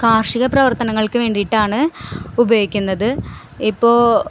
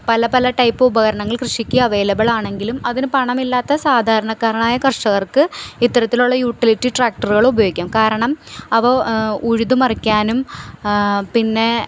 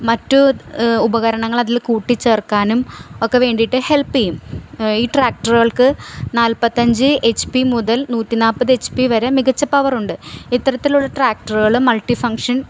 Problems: background sounds at intervals